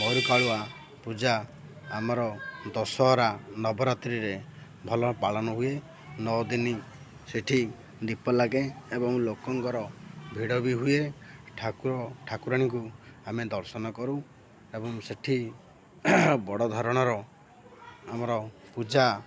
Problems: constant background noise, continuous background conversations